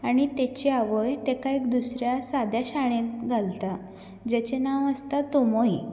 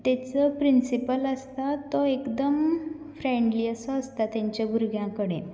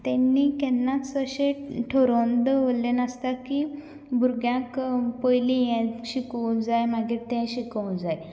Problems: none marked